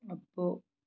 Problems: low volume